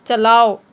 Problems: constant background noise